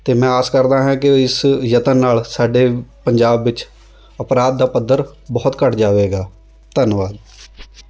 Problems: none marked